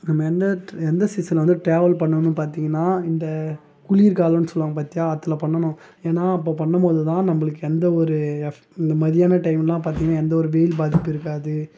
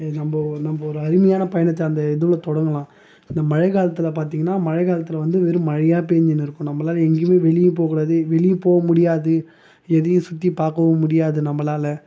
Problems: background sounds at intervals